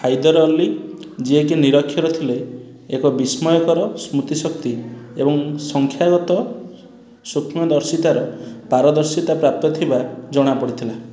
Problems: background sounds at intervals, background conversations at intervals